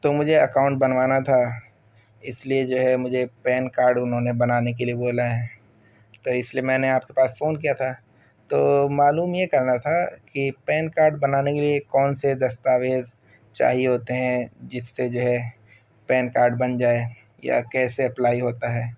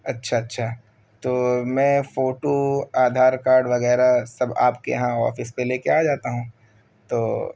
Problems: background sounds at intervals